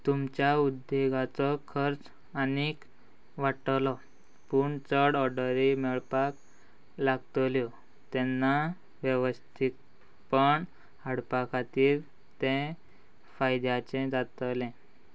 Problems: constant background noise